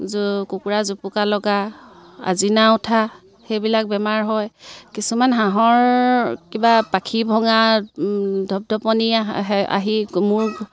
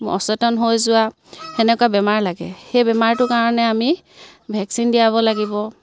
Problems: none marked